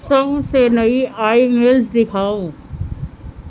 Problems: none marked